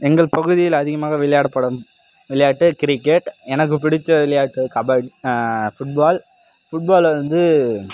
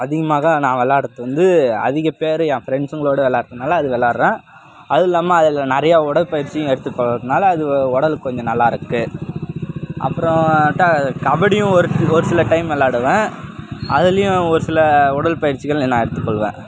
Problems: none marked